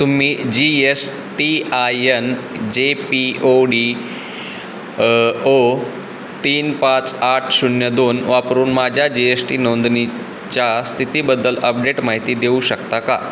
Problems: constant background noise